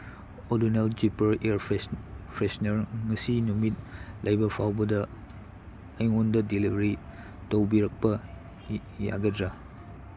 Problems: background sounds at intervals